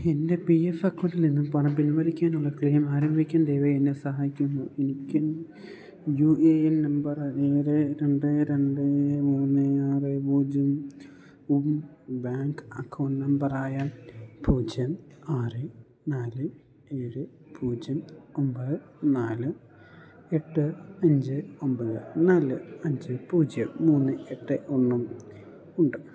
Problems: background sounds at intervals